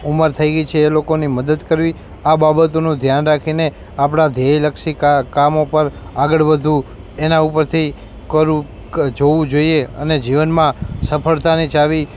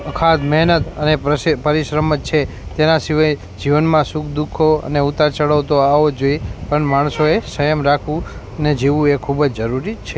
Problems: background sounds at intervals